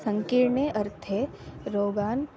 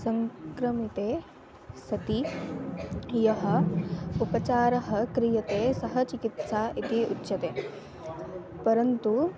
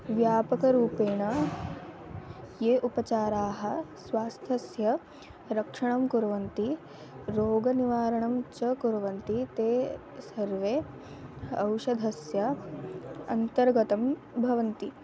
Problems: continuous background conversations